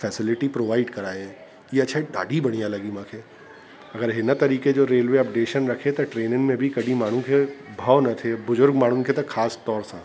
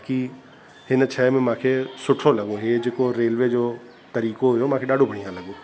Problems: constant background noise, echo